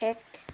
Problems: constant background noise